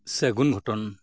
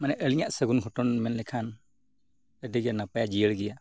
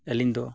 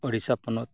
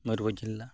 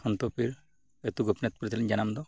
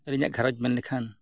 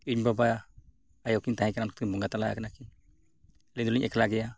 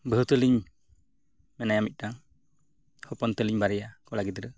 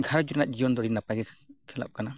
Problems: none marked